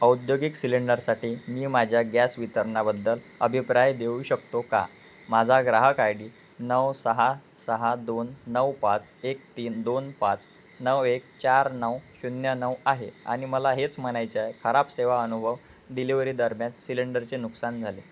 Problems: none marked